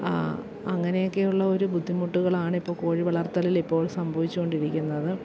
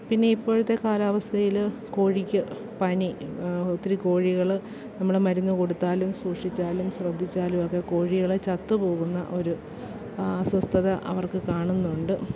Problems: background sounds at intervals, low volume